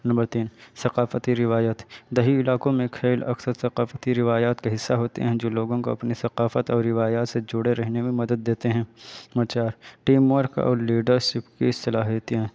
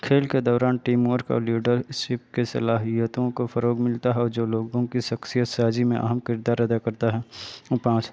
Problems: constant background noise